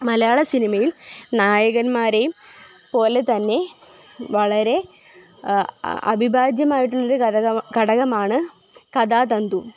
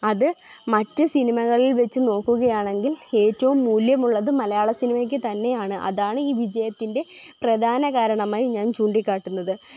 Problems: constant background noise